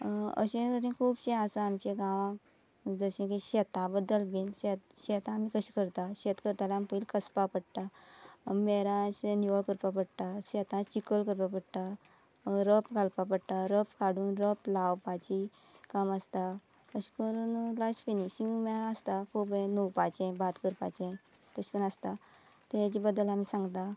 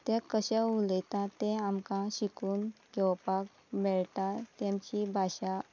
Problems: constant background noise, background conversations at intervals